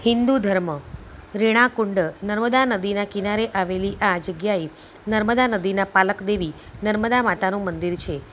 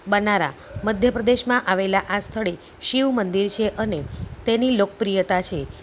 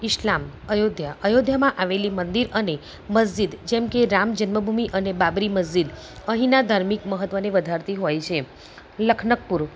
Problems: none marked